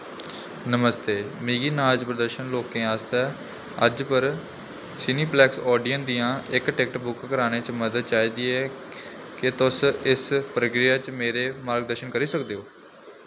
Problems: constant background noise